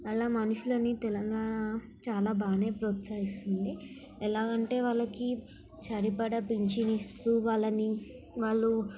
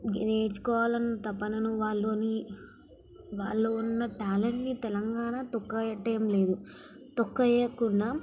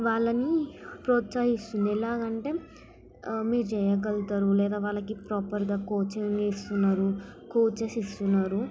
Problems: background sounds at intervals, background conversations at intervals, low volume